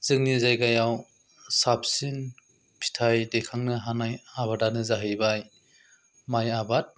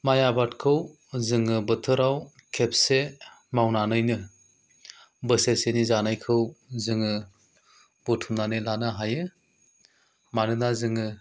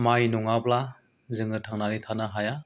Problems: low volume